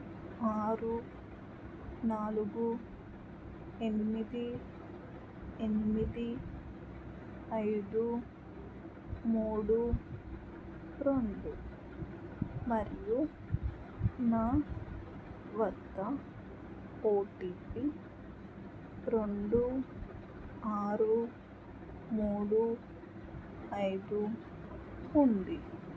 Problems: low volume